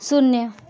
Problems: background sounds at intervals